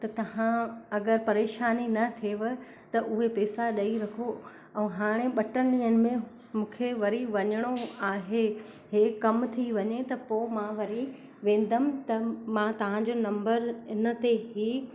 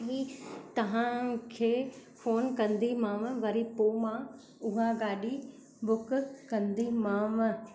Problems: constant background noise, echo